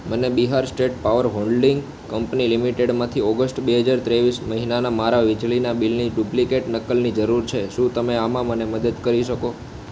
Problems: constant background noise